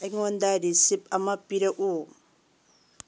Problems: low volume